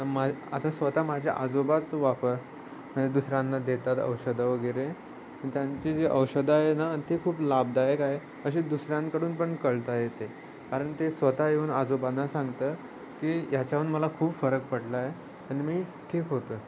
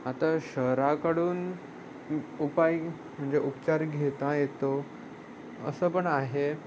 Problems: constant background noise, background conversations at intervals